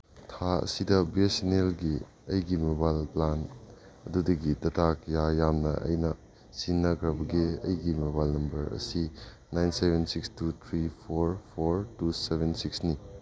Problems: none marked